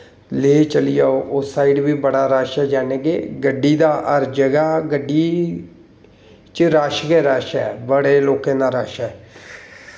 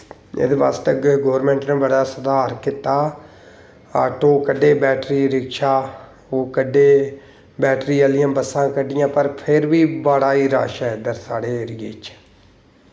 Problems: none marked